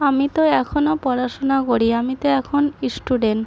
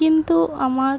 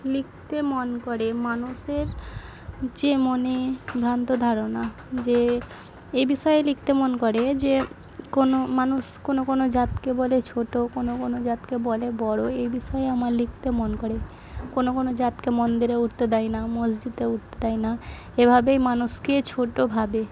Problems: none marked